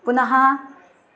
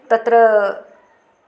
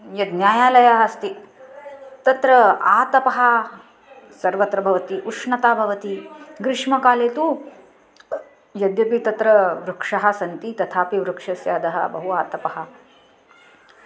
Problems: constant background noise, continuous background conversations